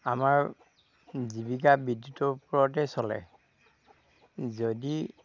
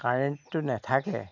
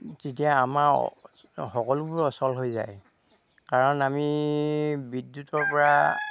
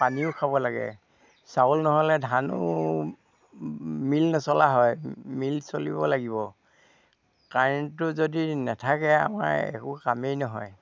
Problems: background sounds at intervals, low volume